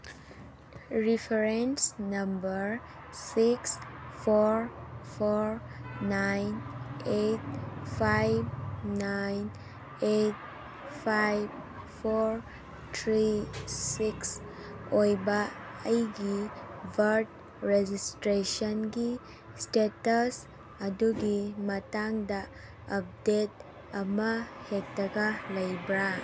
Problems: background sounds at intervals